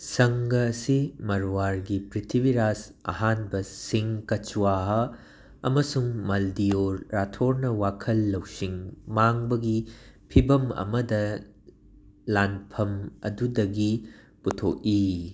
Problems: background sounds at intervals